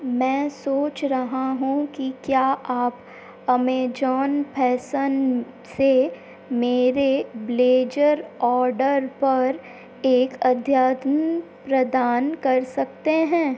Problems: constant background noise